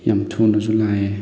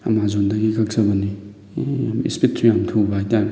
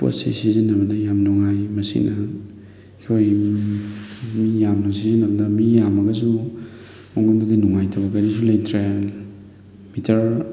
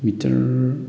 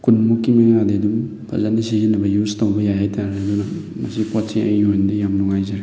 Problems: background sounds at intervals, background conversations at intervals